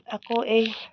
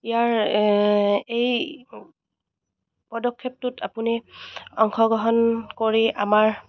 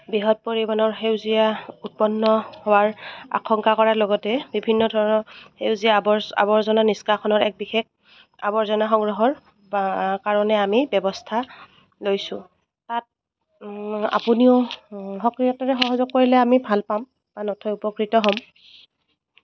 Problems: none marked